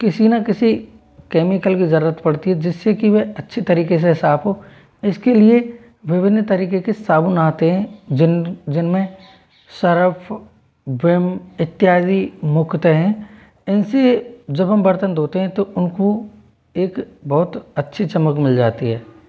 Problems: none marked